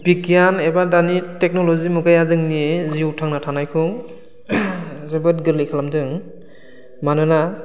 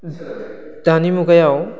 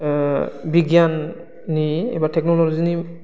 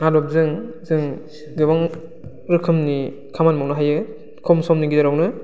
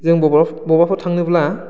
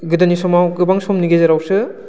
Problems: constant background noise